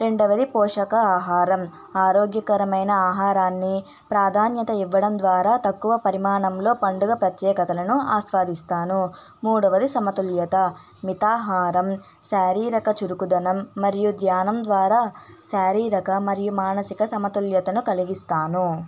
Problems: background sounds at intervals, background conversations at intervals